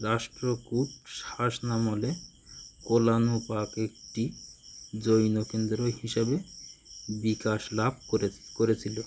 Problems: none marked